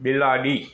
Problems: background sounds at intervals